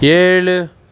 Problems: background sounds at intervals